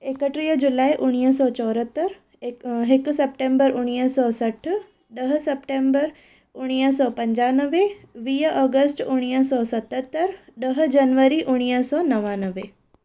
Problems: none marked